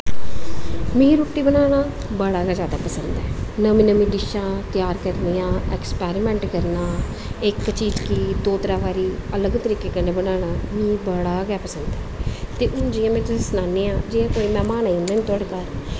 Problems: constant background noise